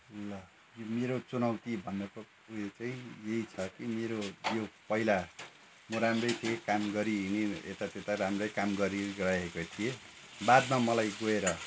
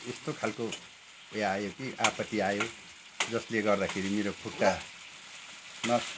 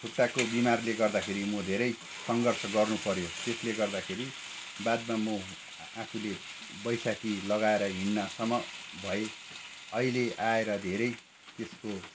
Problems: constant background noise, background conversations at intervals